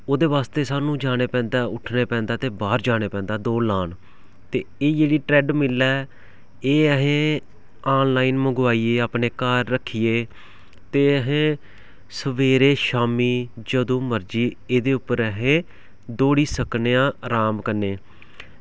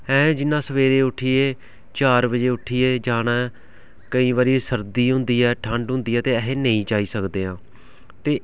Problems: background sounds at intervals